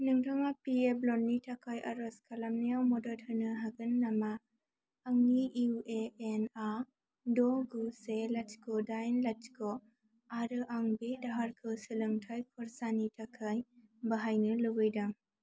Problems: low volume